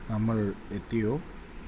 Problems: constant background noise, low volume